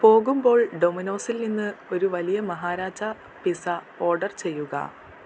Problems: constant background noise, low volume